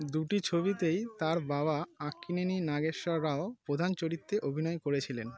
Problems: background conversations at intervals